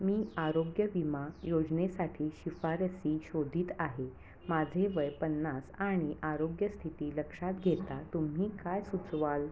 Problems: constant background noise